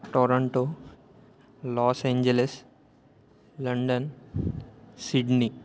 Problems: none marked